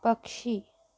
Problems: none marked